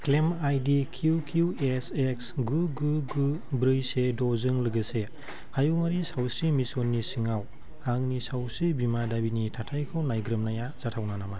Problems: constant background noise